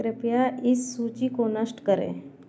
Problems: constant background noise